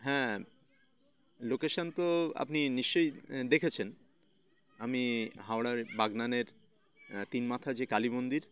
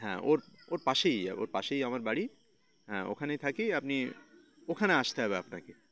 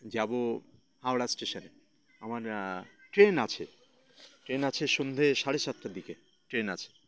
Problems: constant background noise, continuous background conversations